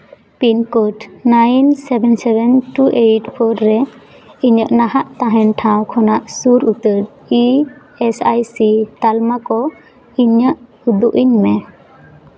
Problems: continuous background conversations